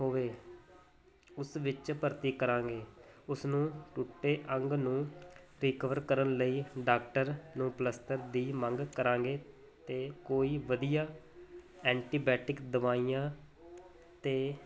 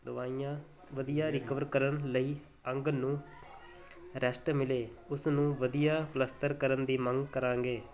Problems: none marked